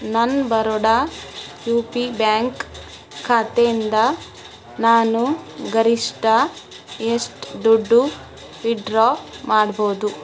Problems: constant background noise